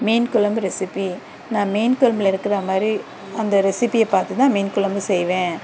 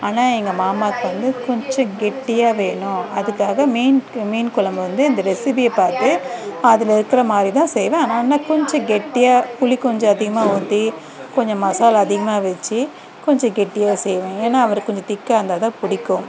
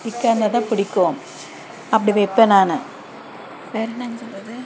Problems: background conversations at intervals